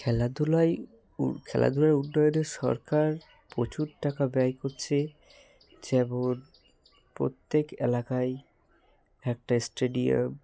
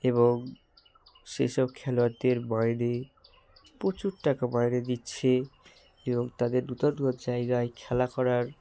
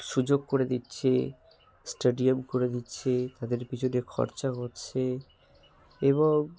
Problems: background sounds at intervals